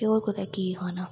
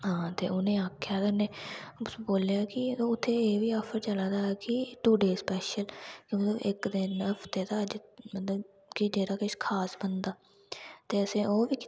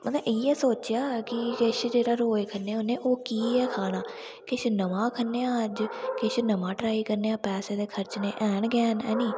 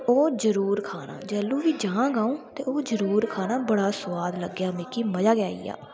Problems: constant background noise